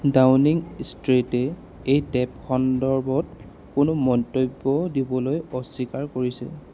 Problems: constant background noise